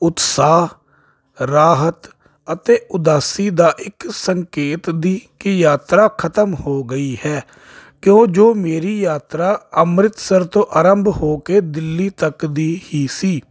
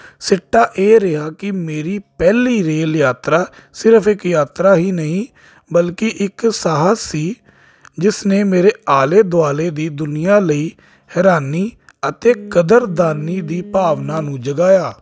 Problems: constant background noise